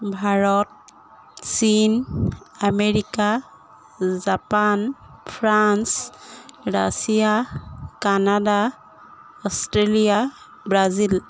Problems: constant background noise